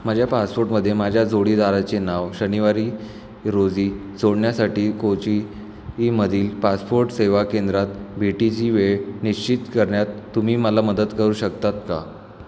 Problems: background sounds at intervals, echo